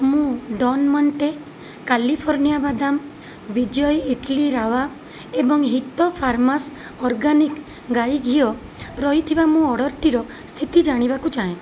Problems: constant background noise